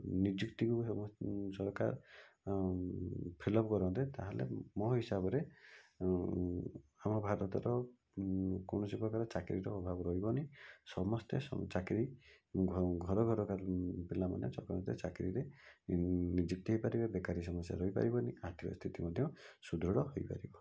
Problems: low volume